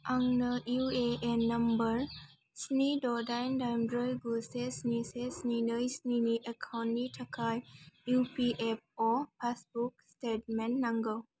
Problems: none marked